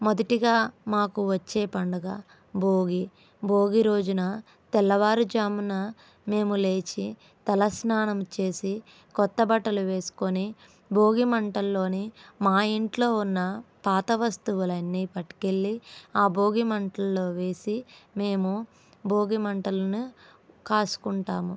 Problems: none marked